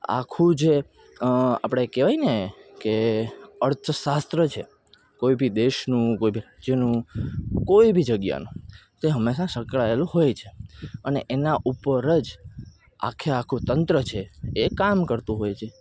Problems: none marked